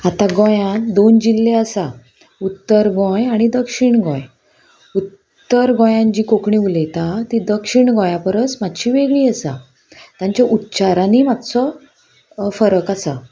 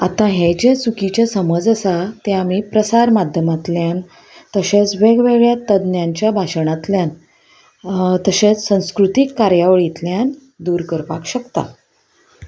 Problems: none marked